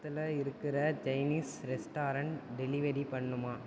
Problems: constant background noise, low volume